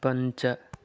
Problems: none marked